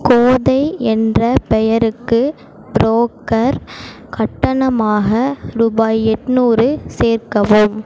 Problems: constant background noise